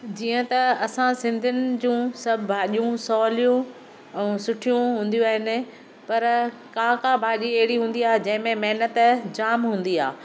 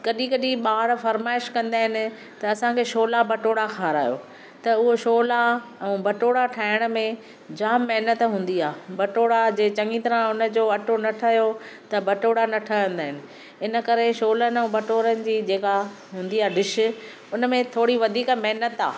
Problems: none marked